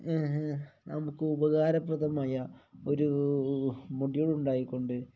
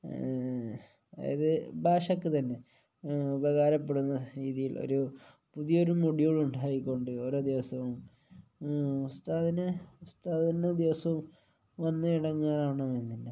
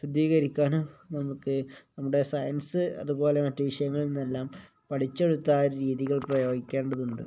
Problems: low volume